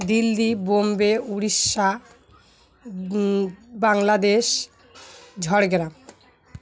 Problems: constant background noise